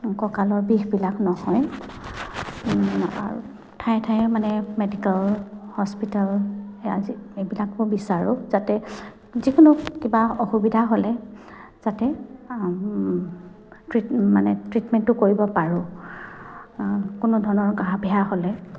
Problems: none marked